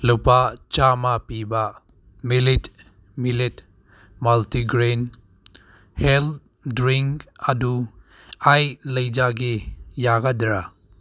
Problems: none marked